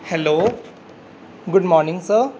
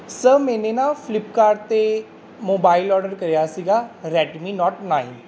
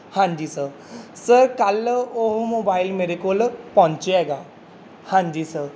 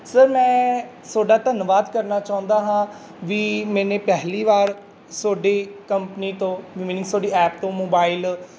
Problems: none marked